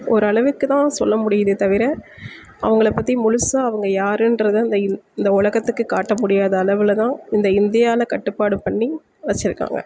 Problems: background sounds at intervals